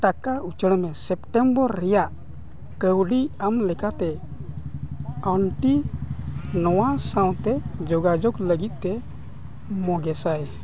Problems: none marked